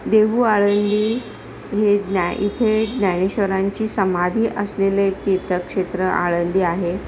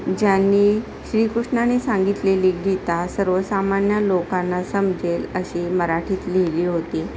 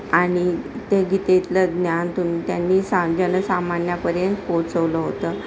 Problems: constant background noise, continuous background conversations